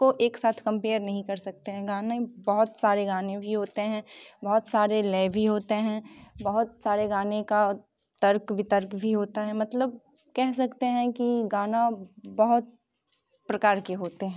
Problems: background sounds at intervals